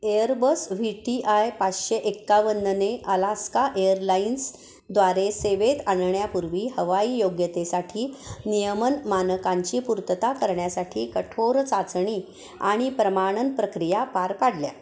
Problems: constant background noise